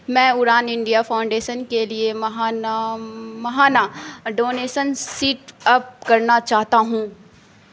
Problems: constant background noise